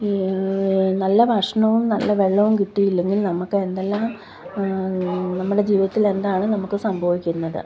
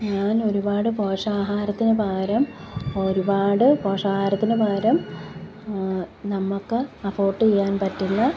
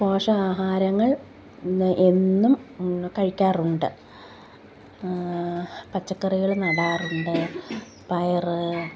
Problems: background sounds at intervals, background conversations at intervals